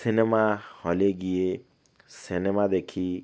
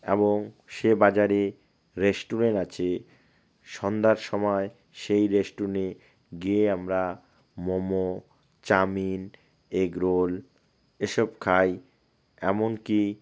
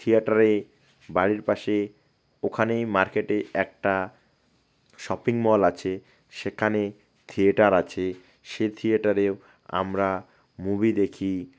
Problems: none marked